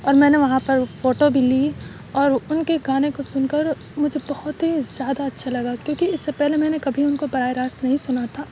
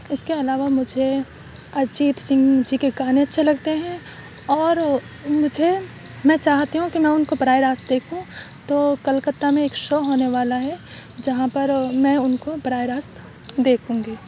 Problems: none marked